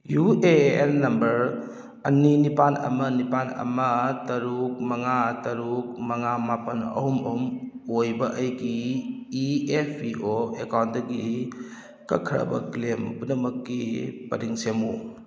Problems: none marked